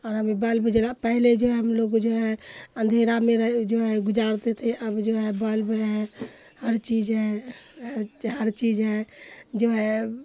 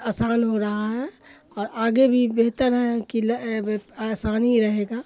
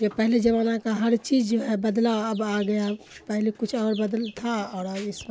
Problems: constant background noise